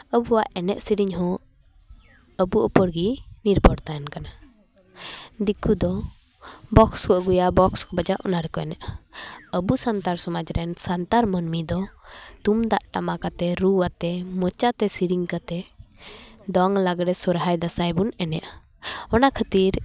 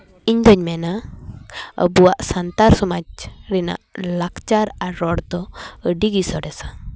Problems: background sounds at intervals, background conversations at intervals